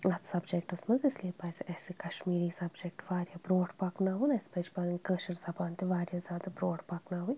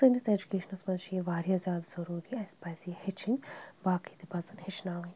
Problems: none marked